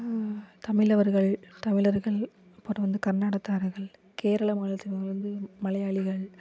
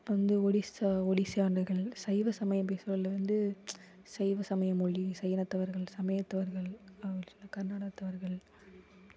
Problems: background sounds at intervals